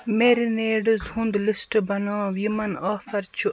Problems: none marked